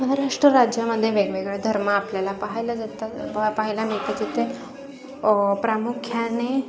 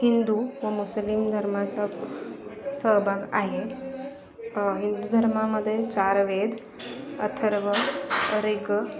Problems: constant background noise, continuous background conversations